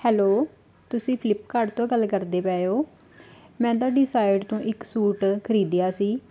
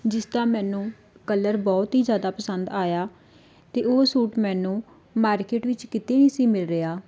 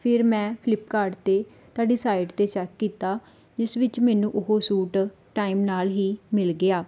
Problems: background sounds at intervals